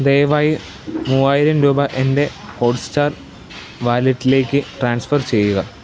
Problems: none marked